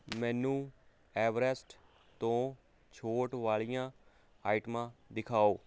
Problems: constant background noise